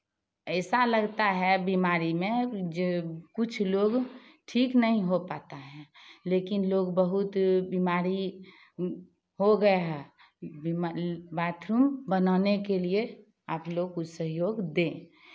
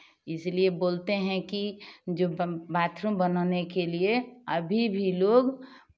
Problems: none marked